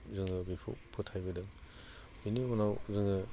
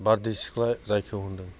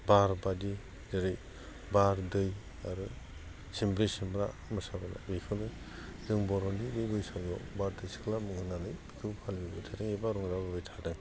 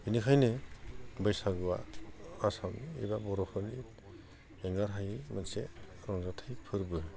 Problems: none marked